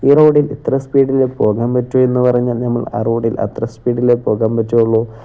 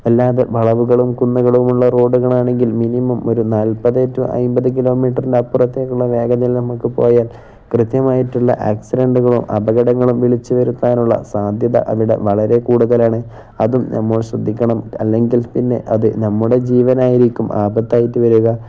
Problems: none marked